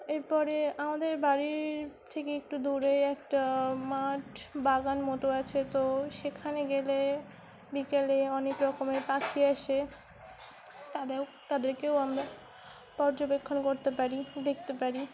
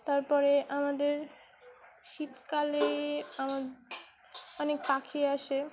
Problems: constant background noise, continuous background conversations